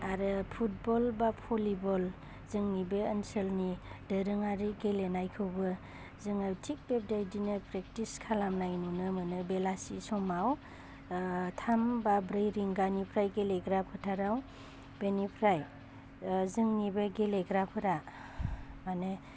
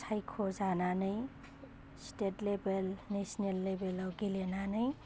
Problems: constant background noise